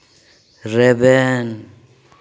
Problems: echo